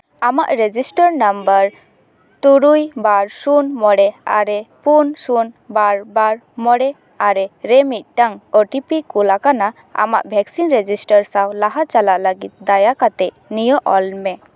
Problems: none marked